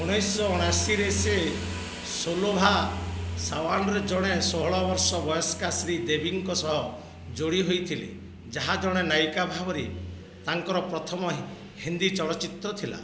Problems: constant background noise